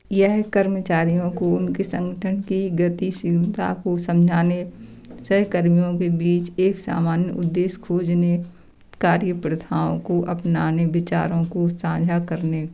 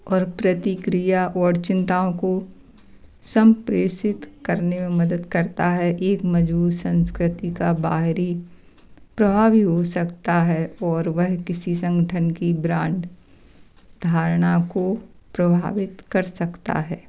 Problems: background sounds at intervals